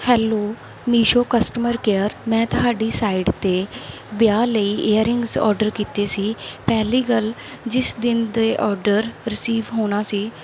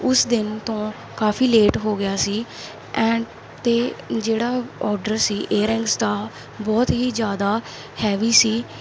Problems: none marked